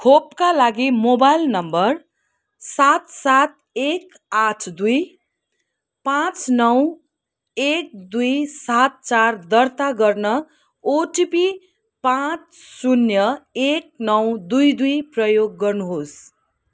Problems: none marked